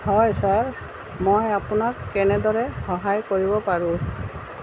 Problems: constant background noise